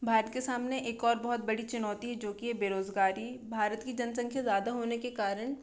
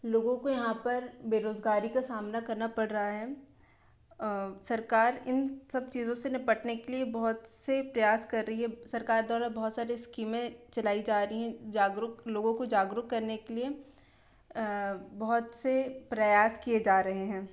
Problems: constant background noise